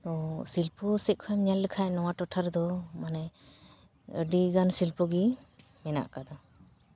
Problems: background conversations at intervals